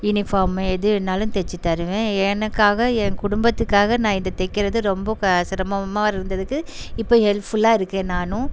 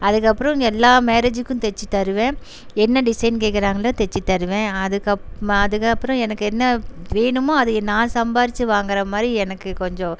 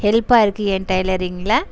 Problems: constant background noise